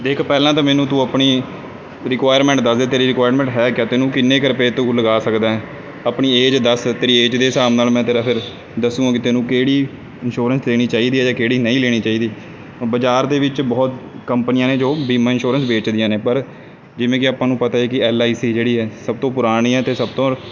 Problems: none marked